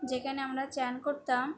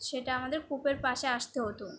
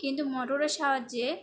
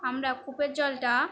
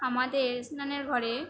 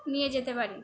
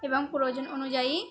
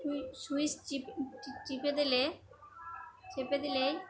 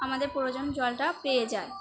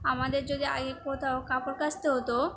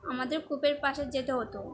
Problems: constant background noise, continuous background conversations